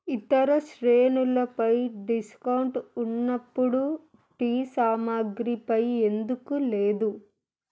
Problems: constant background noise